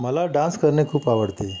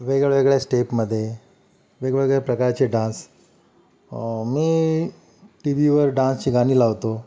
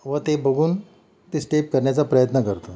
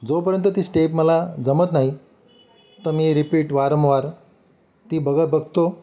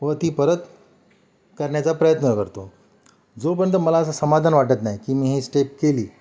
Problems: none marked